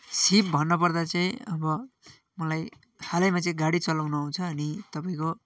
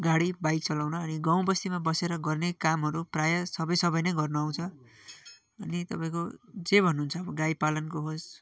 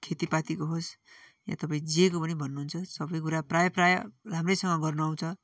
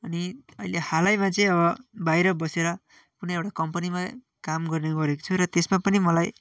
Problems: constant background noise, continuous background conversations